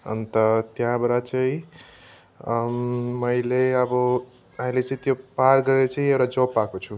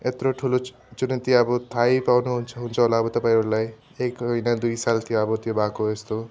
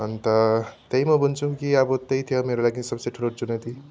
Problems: background sounds at intervals